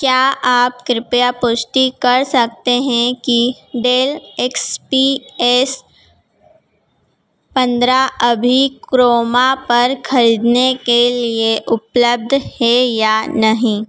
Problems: background sounds at intervals